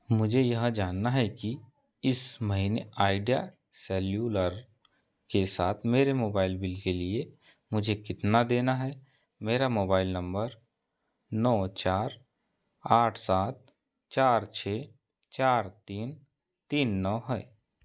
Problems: none marked